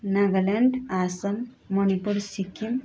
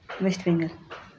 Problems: none marked